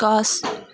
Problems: background sounds at intervals